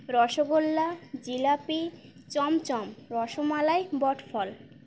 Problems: constant background noise, background conversations at intervals